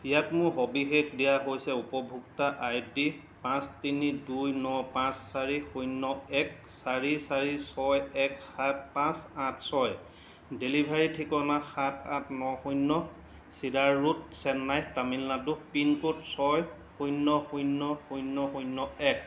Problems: constant background noise